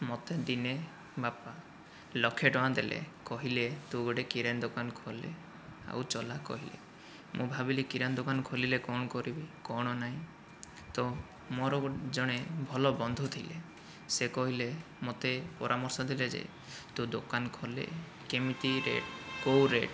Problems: none marked